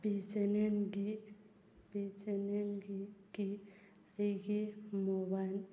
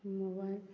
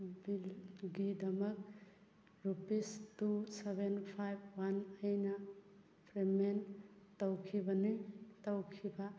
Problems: background sounds at intervals